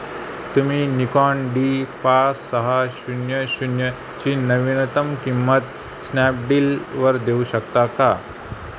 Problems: constant background noise